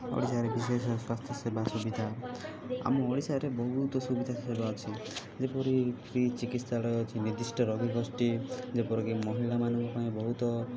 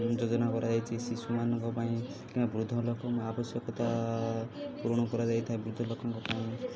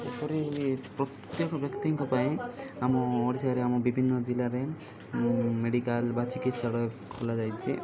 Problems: constant background noise